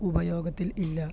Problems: low volume